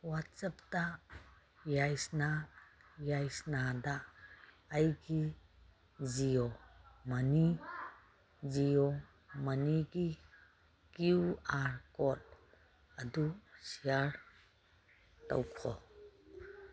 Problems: none marked